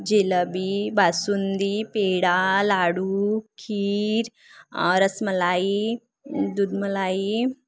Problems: background sounds at intervals